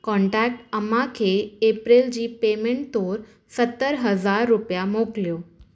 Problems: none marked